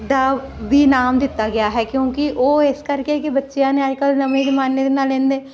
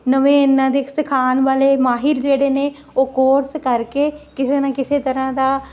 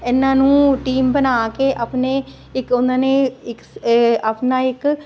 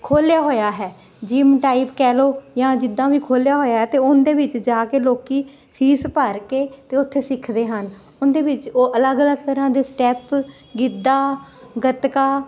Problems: constant background noise